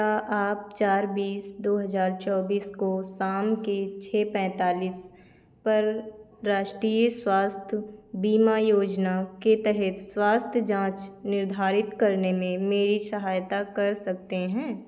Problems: none marked